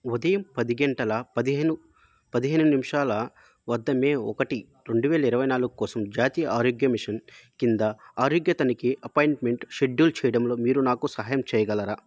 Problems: none marked